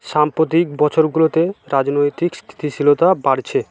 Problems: constant background noise